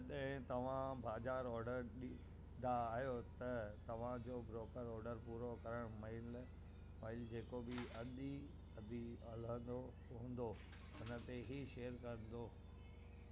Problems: constant background noise, low volume